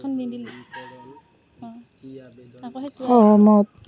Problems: continuous background conversations